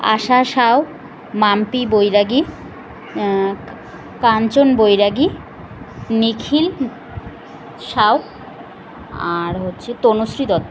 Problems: constant background noise